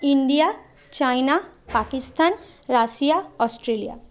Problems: constant background noise